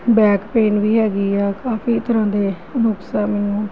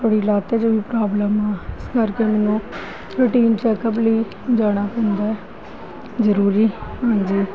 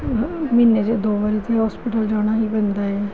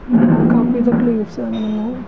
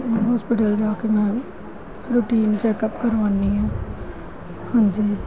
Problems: constant background noise